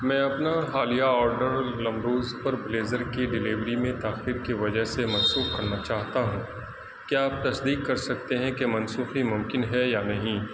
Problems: constant background noise